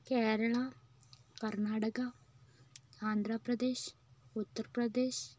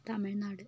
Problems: low volume